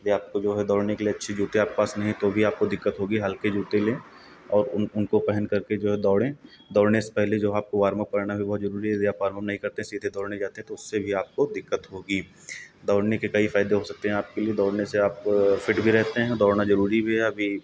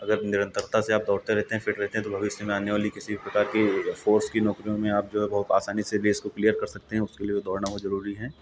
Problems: none marked